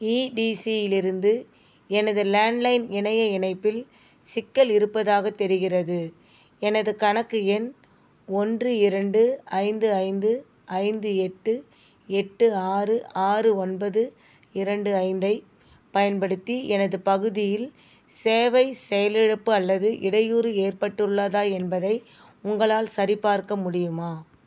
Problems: background sounds at intervals